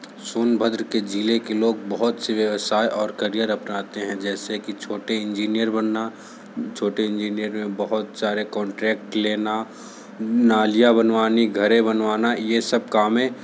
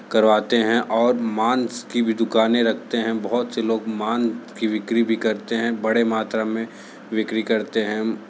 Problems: none marked